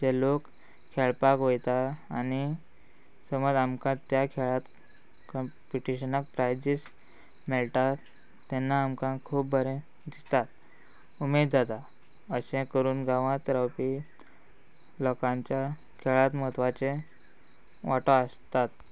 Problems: constant background noise